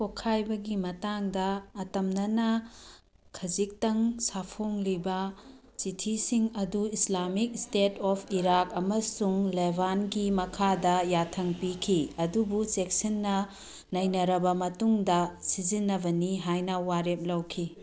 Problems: background conversations at intervals